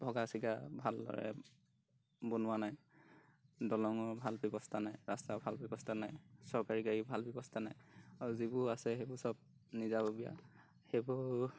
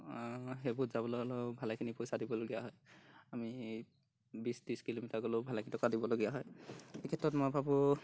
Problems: background sounds at intervals